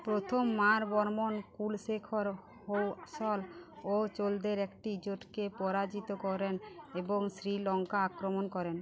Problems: none marked